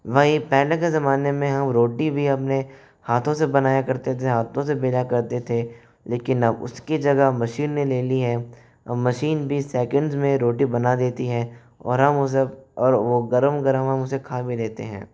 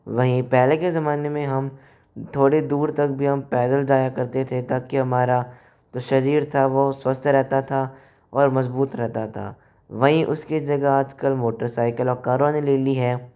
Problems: none marked